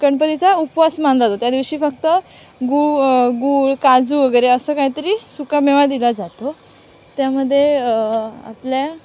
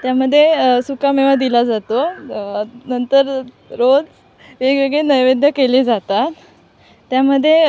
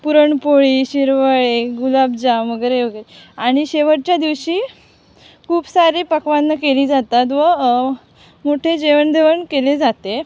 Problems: none marked